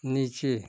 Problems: none marked